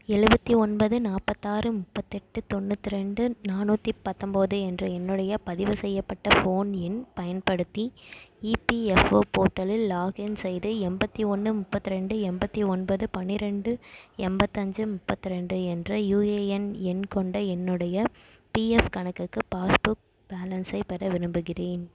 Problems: echo